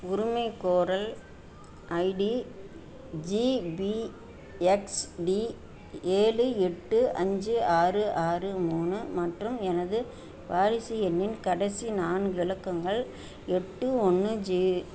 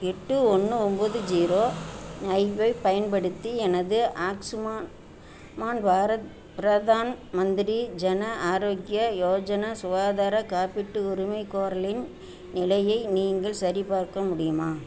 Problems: constant background noise